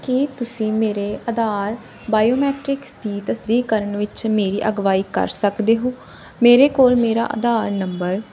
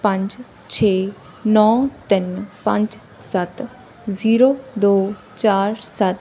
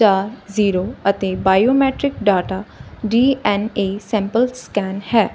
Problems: background sounds at intervals